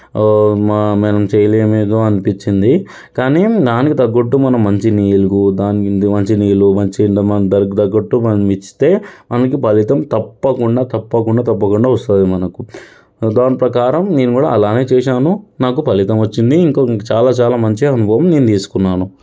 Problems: background sounds at intervals